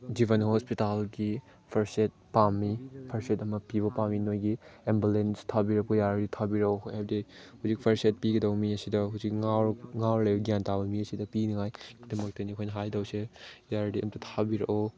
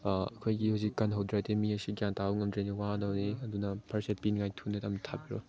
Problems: background sounds at intervals